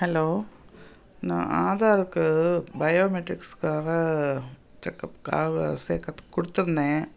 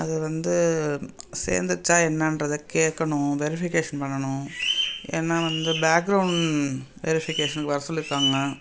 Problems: constant background noise